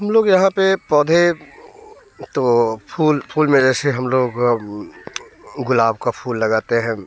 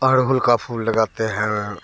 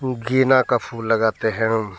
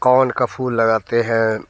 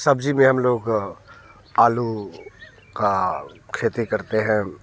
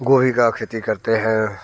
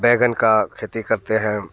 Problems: background conversations at intervals